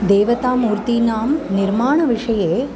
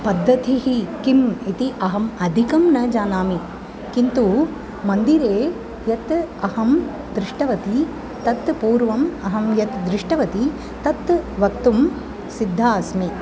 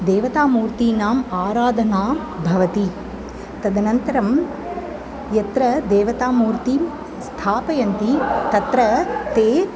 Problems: constant background noise, continuous background conversations